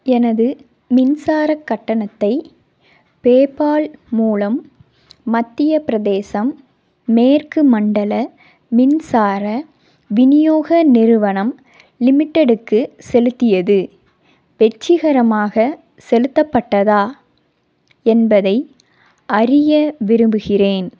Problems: none marked